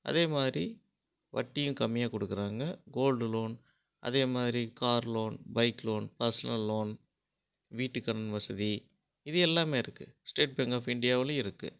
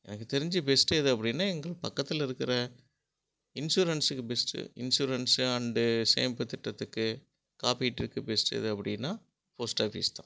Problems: none marked